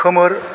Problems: constant background noise